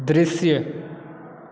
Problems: constant background noise